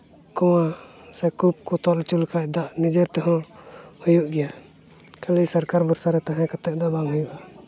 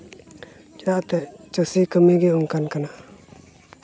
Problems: background sounds at intervals, background conversations at intervals